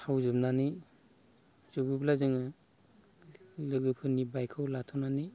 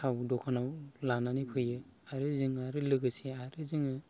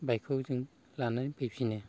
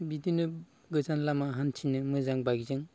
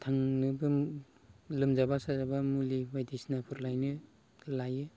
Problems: none marked